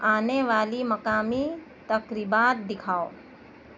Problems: none marked